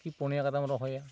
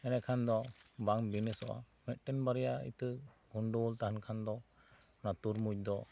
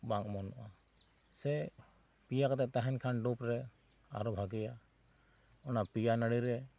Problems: none marked